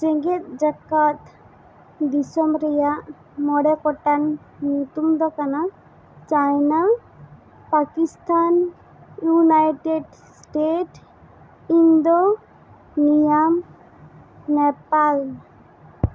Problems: constant background noise